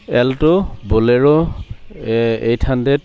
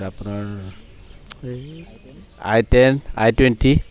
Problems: constant background noise, background conversations at intervals